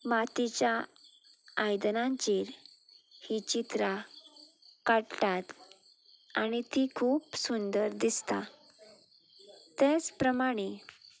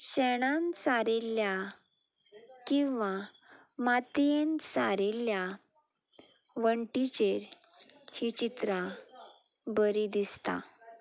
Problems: none marked